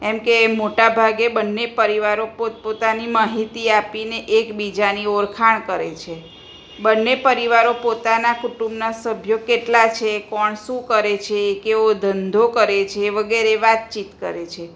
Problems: none marked